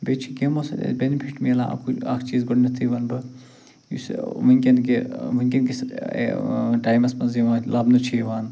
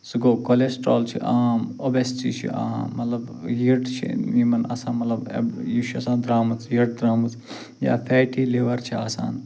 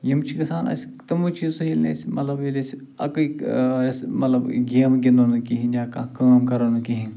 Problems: none marked